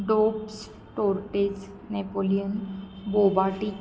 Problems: constant background noise